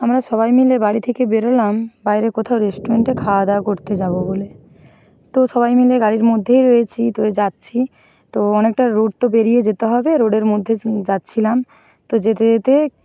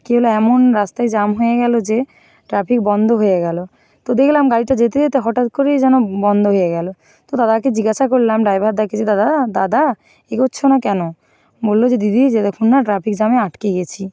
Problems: none marked